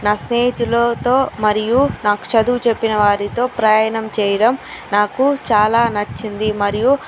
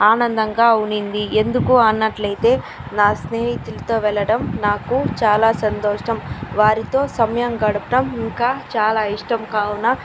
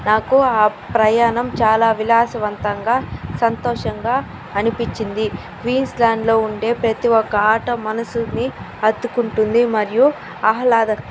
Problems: constant background noise